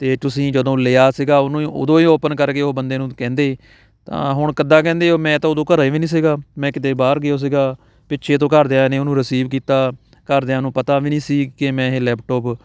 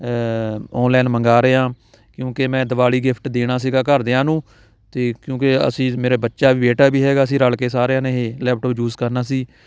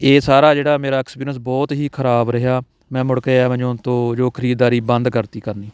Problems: background sounds at intervals, background conversations at intervals